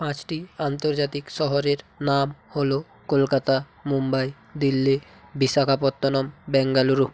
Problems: none marked